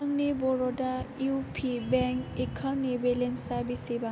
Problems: low volume